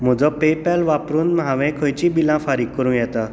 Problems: none marked